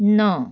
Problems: background sounds at intervals